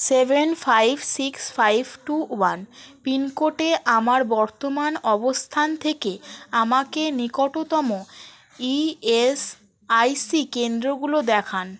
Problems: constant background noise